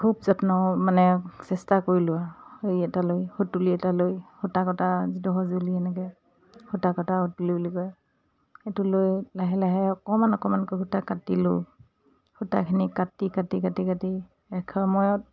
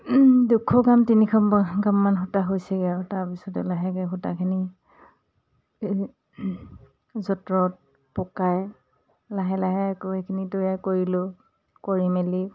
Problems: none marked